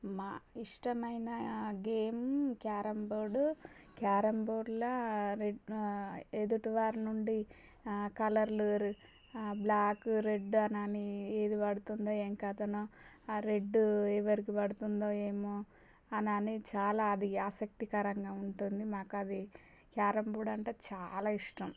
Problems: none marked